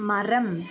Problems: background conversations at intervals